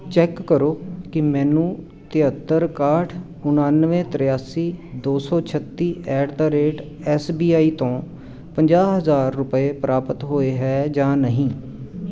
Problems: none marked